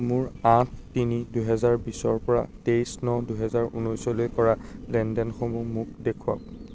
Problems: background sounds at intervals